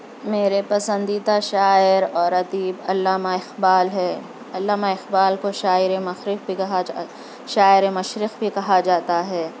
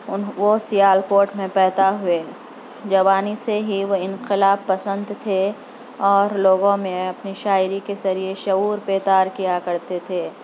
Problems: constant background noise